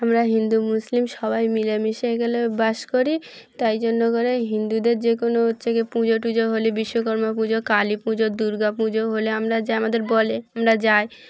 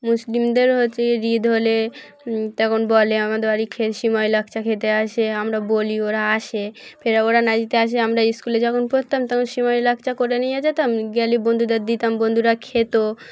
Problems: none marked